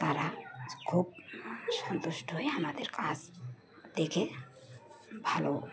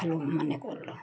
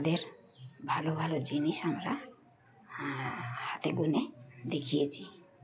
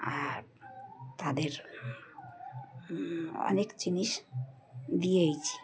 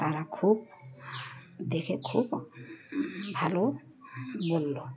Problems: background sounds at intervals, background conversations at intervals